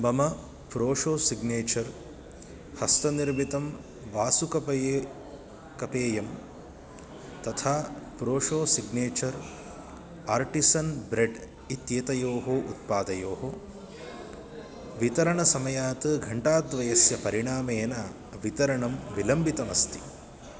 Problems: none marked